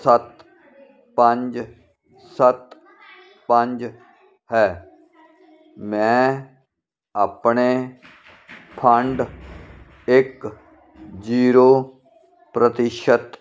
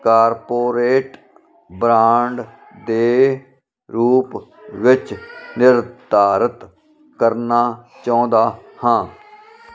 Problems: none marked